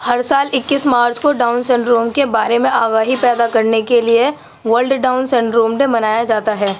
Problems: constant background noise